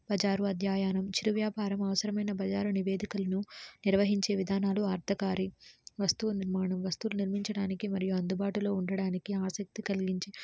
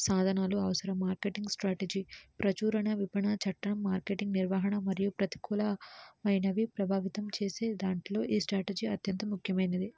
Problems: low volume